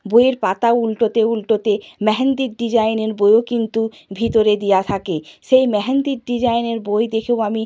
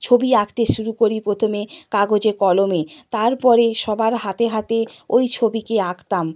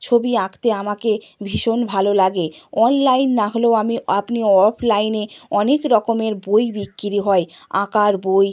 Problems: background sounds at intervals